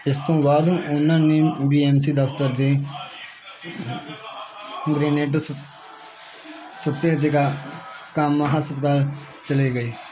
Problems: none marked